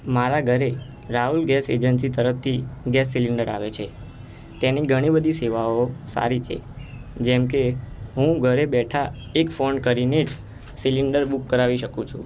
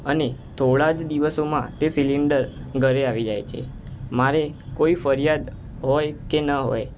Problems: constant background noise